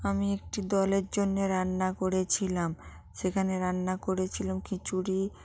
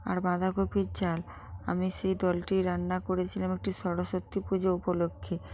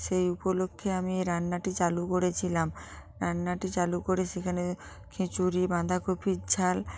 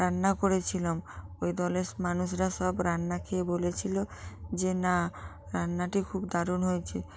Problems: none marked